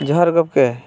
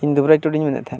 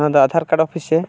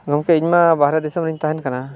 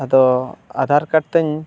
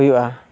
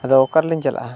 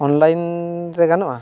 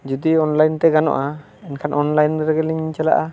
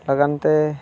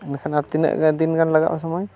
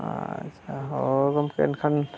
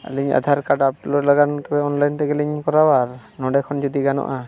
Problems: background conversations at intervals